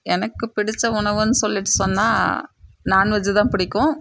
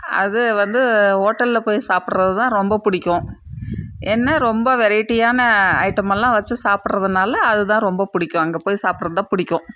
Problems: none marked